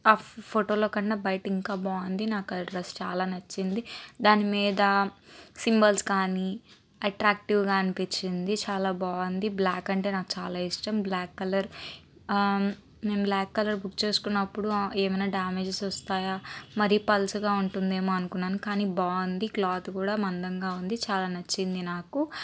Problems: constant background noise